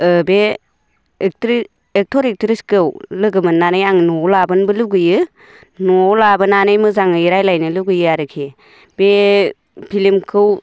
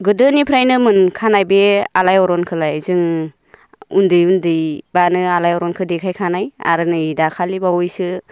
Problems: none marked